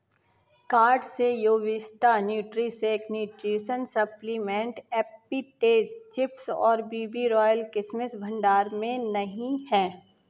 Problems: none marked